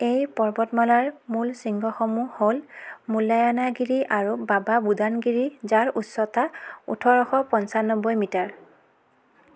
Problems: none marked